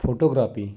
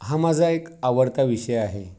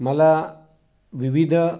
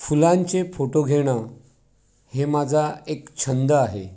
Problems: background sounds at intervals